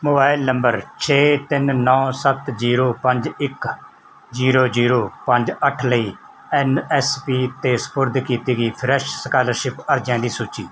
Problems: none marked